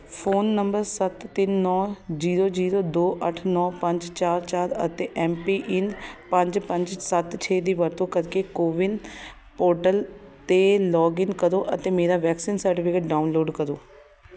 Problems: continuous background conversations